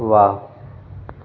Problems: constant background noise, echo